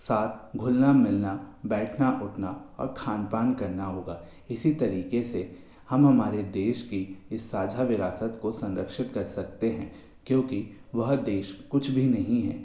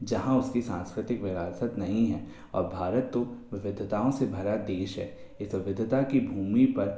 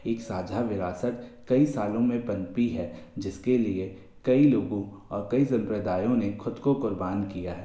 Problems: constant background noise, echo